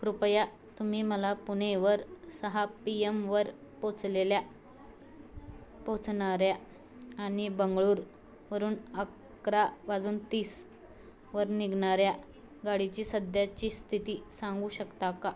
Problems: constant background noise, continuous background conversations